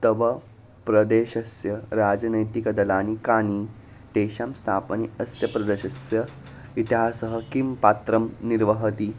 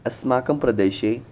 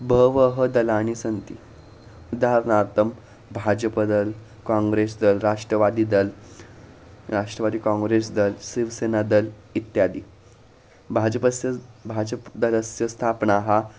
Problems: constant background noise